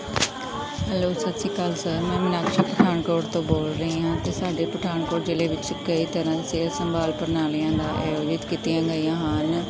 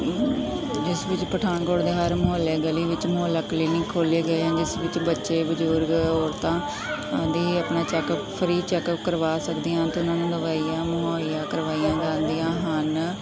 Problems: background sounds at intervals, continuous background conversations